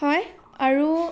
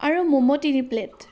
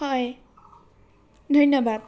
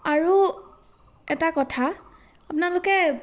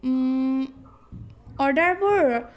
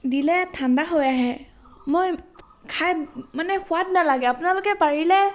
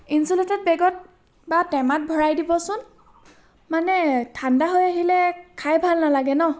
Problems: none marked